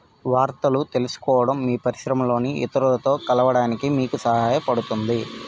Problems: background sounds at intervals